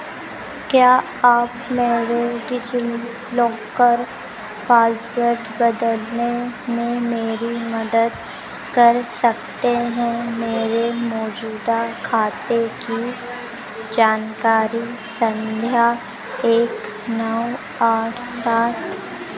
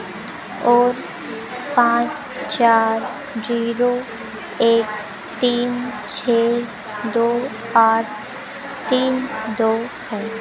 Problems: constant background noise